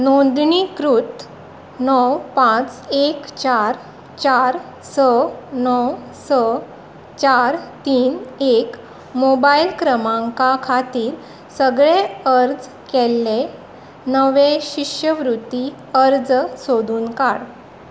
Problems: none marked